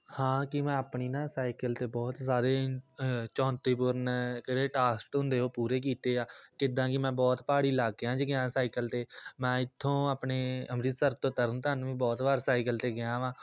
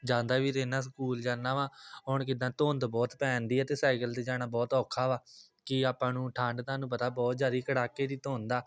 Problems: none marked